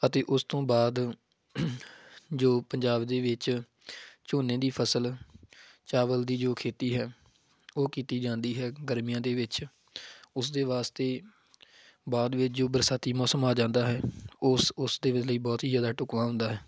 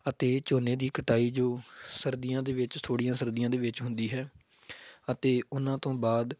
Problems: background sounds at intervals